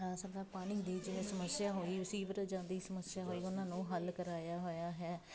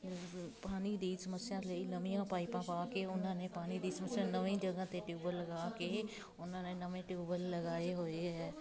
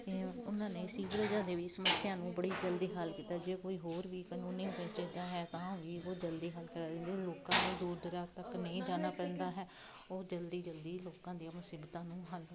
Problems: constant background noise